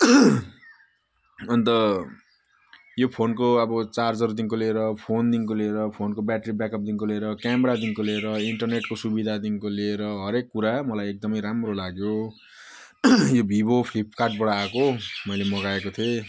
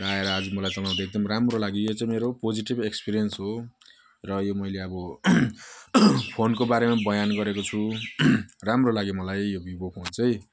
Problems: none marked